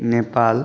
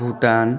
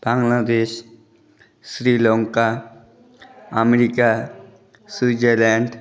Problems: constant background noise, continuous background conversations